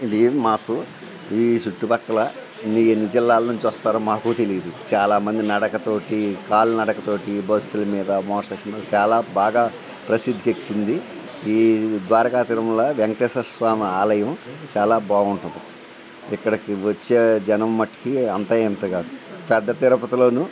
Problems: constant background noise